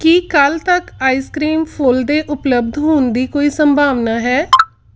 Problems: background sounds at intervals